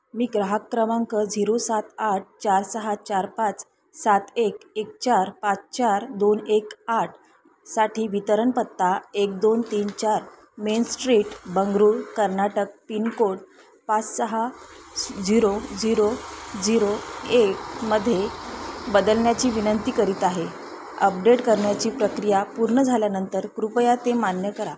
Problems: constant background noise